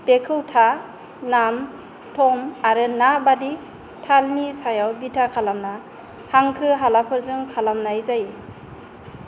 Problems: constant background noise